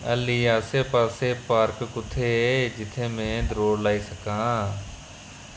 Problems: constant background noise